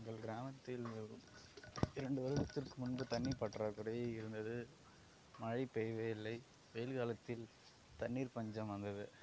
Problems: none marked